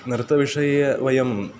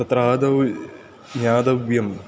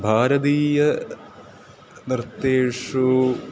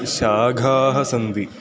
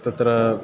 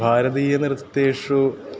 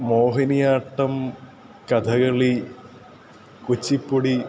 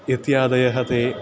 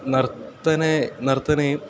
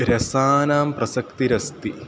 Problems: constant background noise